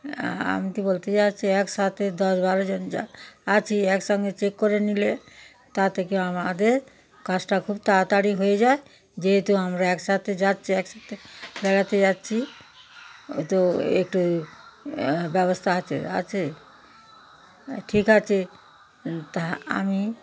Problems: constant background noise